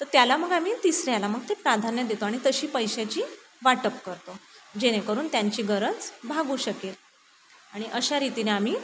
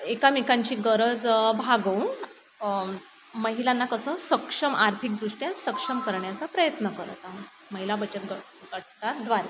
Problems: constant background noise